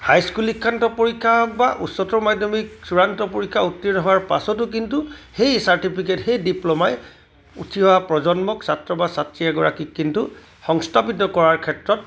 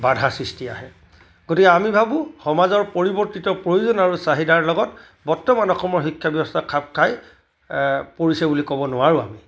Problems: constant background noise